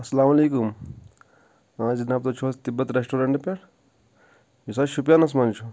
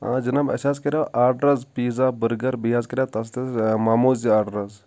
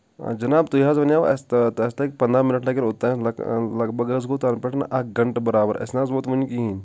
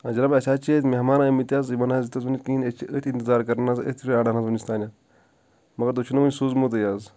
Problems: none marked